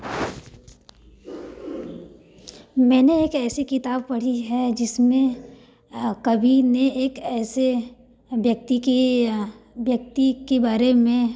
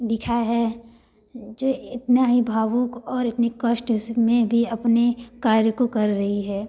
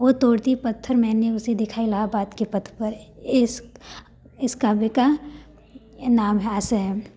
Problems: none marked